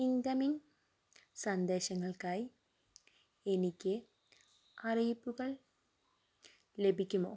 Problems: low volume